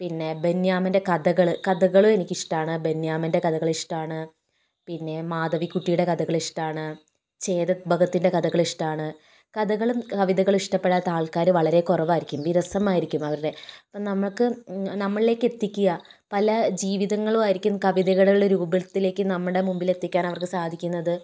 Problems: none marked